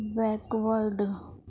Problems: none marked